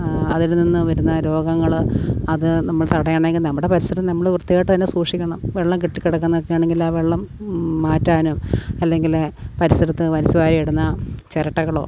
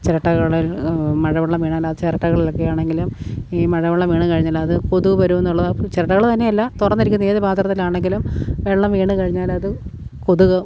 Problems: none marked